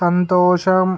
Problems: none marked